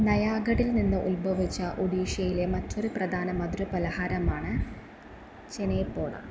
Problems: constant background noise